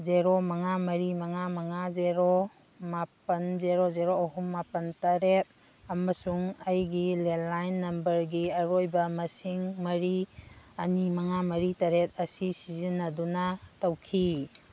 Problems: background sounds at intervals